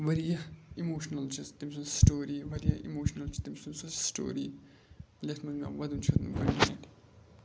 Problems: background sounds at intervals